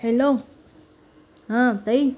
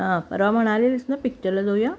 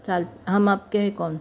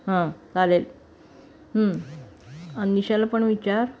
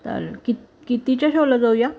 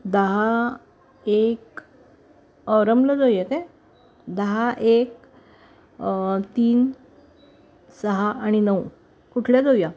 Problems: none marked